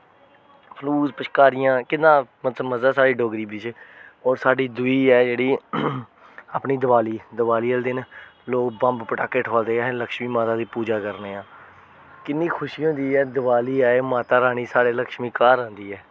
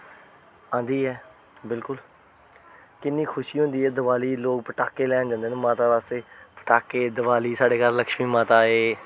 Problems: none marked